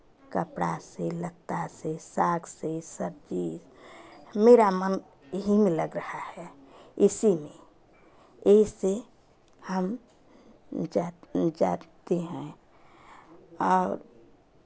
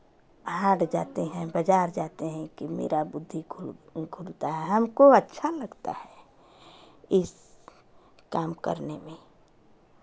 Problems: none marked